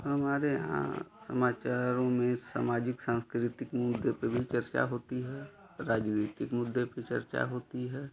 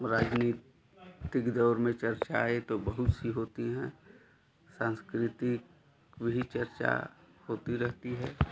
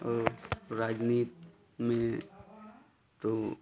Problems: constant background noise, continuous background conversations